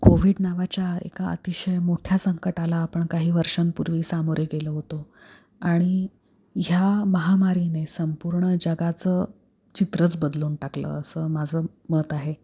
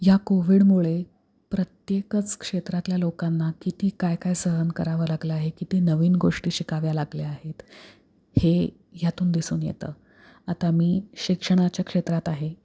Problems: none marked